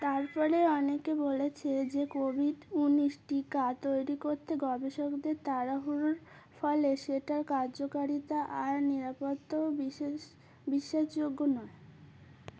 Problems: background sounds at intervals